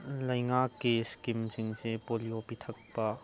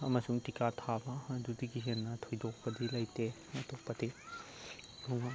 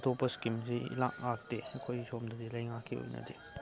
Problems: background sounds at intervals, low volume